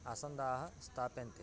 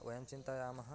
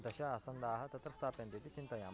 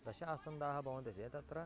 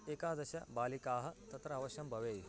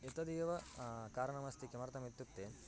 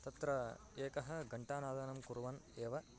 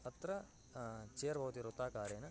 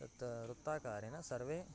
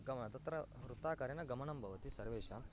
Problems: continuous background conversations, low volume